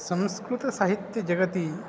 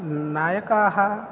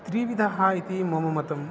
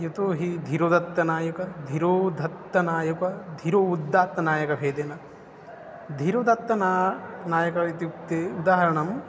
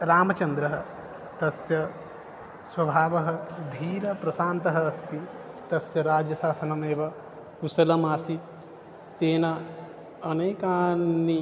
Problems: constant background noise